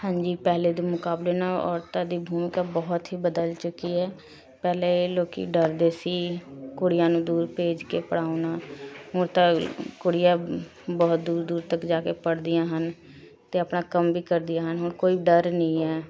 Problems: continuous background conversations